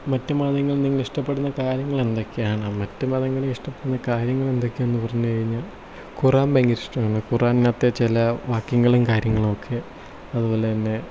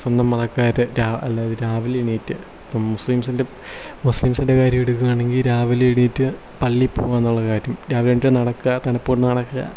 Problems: none marked